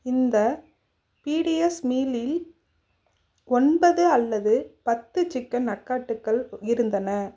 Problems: none marked